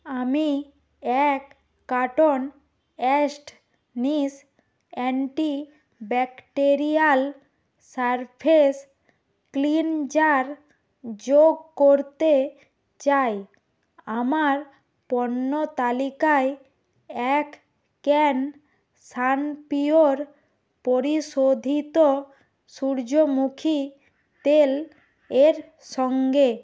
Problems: constant background noise